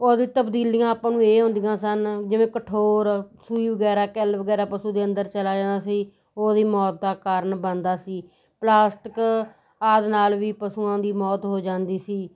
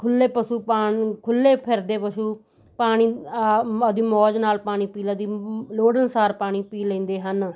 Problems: none marked